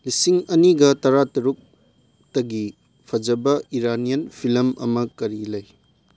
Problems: none marked